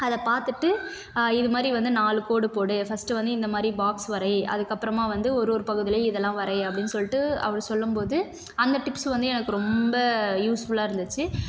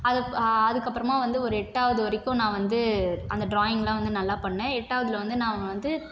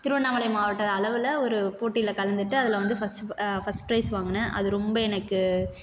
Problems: constant background noise